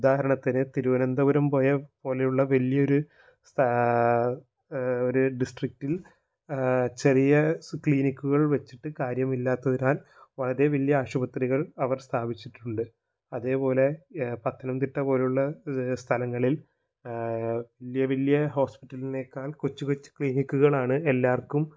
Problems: low volume